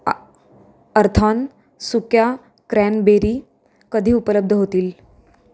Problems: background conversations at intervals